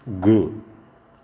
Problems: none marked